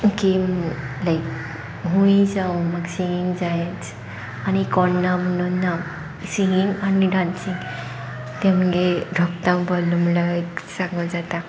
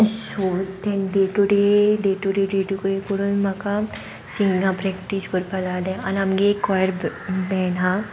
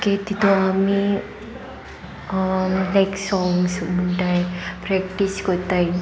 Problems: constant background noise